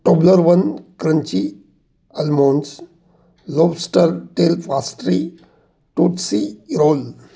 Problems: background sounds at intervals